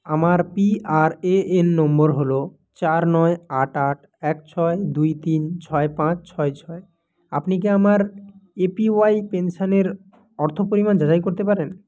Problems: none marked